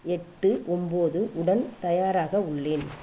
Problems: constant background noise